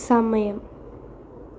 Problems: constant background noise